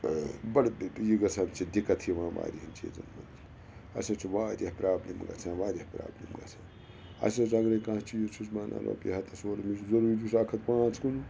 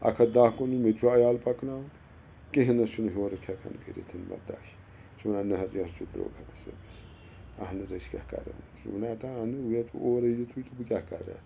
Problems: constant background noise